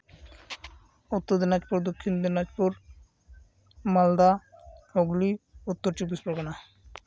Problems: none marked